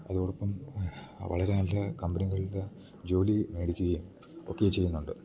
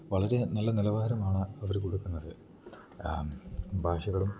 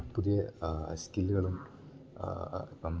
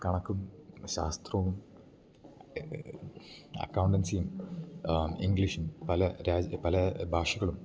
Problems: none marked